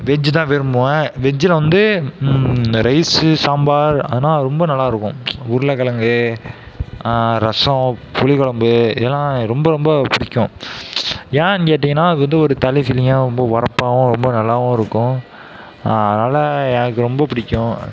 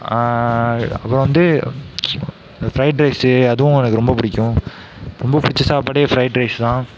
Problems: background sounds at intervals, background conversations at intervals